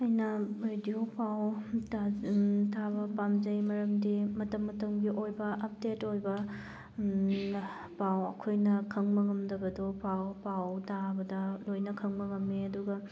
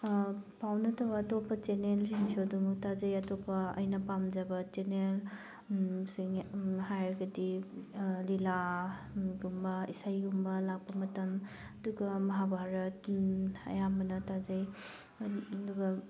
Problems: none marked